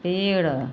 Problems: none marked